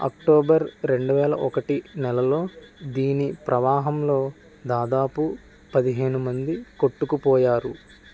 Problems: constant background noise